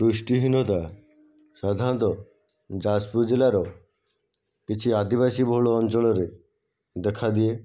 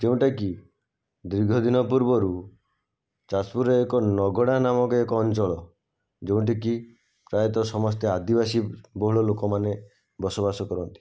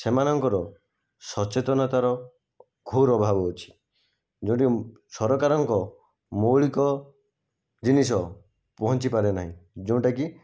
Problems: none marked